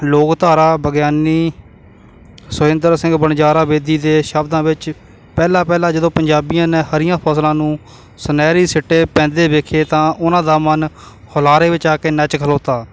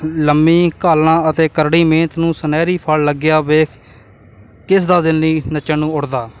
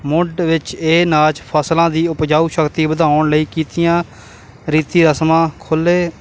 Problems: constant background noise